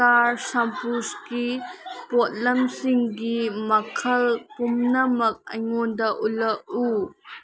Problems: background sounds at intervals